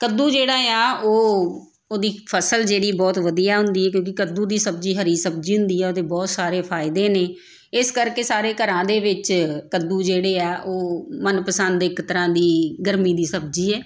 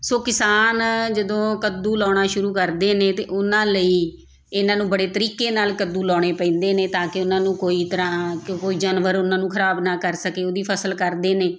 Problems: background sounds at intervals